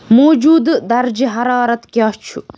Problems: none marked